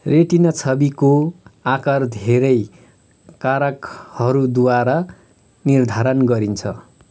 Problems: none marked